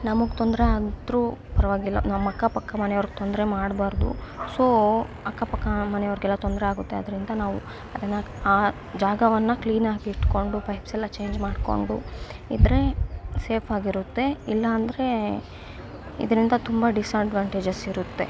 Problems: constant background noise